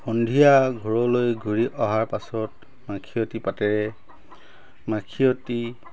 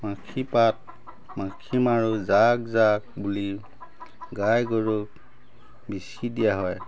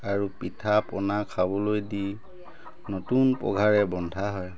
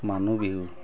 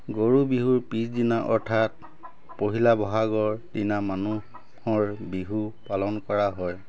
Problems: constant background noise, background conversations at intervals